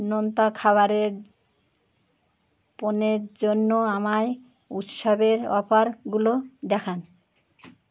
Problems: background sounds at intervals